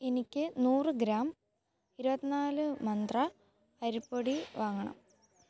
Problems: background sounds at intervals